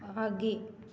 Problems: none marked